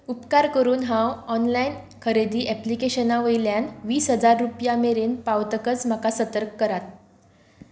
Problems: none marked